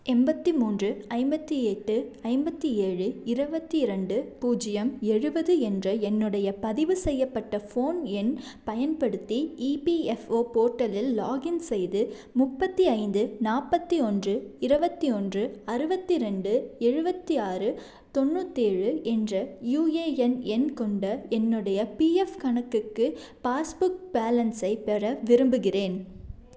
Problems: none marked